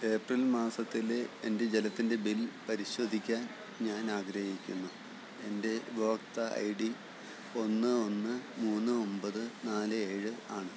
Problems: low volume